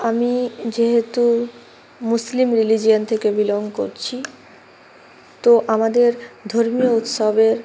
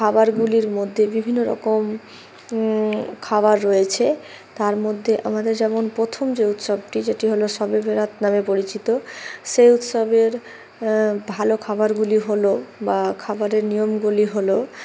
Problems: constant background noise